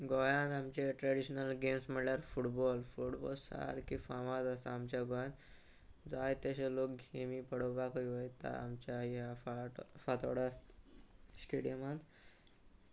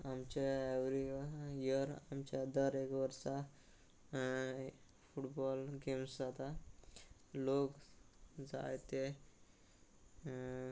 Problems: constant background noise